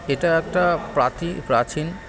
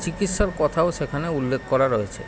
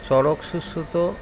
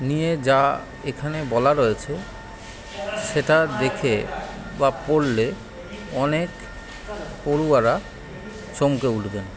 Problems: none marked